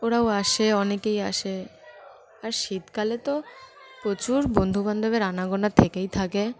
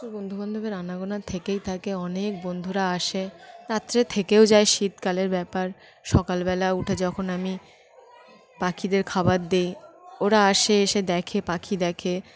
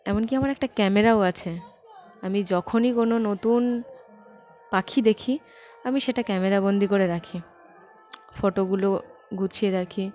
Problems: constant background noise, background conversations at intervals